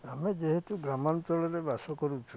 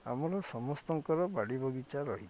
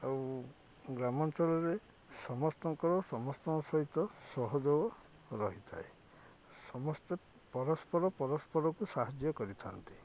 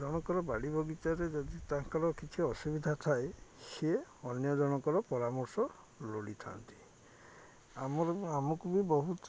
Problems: none marked